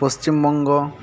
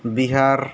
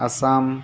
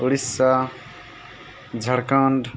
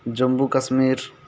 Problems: constant background noise